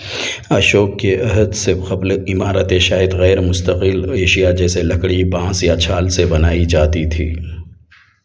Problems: background sounds at intervals